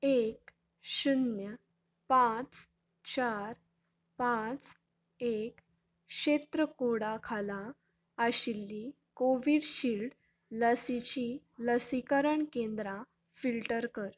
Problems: none marked